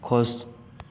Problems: continuous background conversations